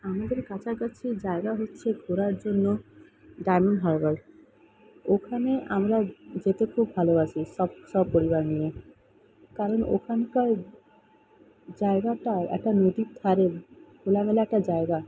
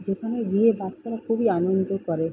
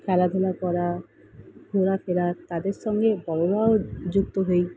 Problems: none marked